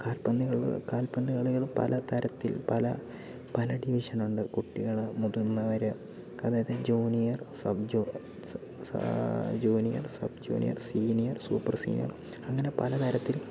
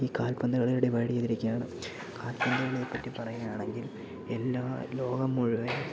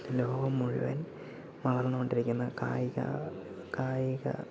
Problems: background sounds at intervals, low volume